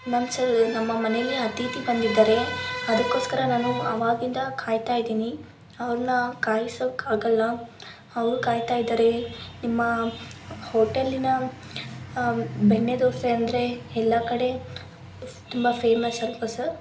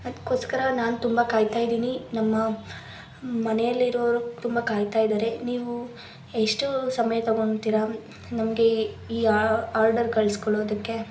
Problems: constant background noise